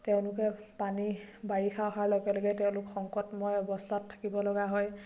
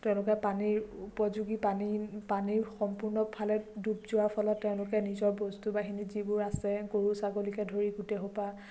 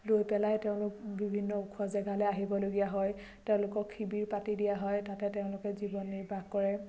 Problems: none marked